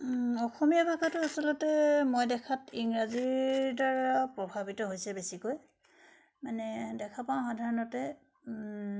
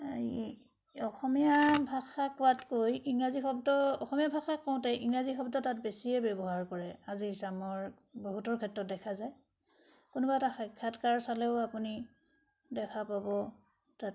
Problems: none marked